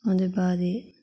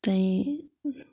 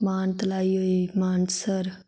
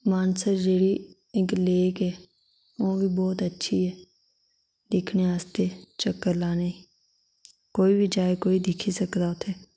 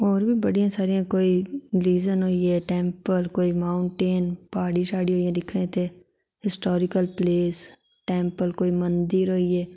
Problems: none marked